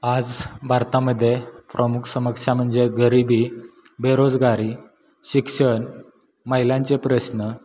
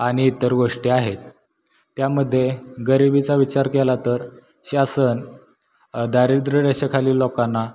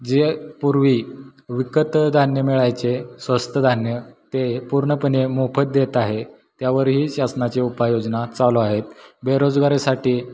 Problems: background sounds at intervals